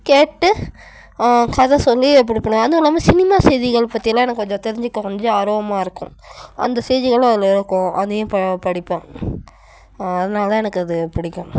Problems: none marked